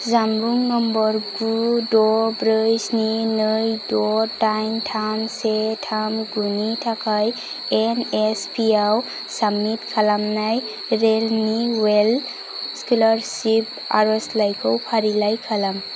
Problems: none marked